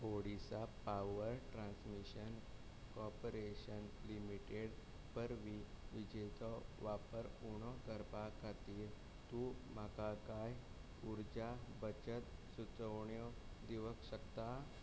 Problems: constant background noise, low volume